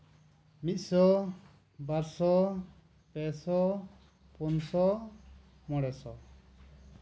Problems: background sounds at intervals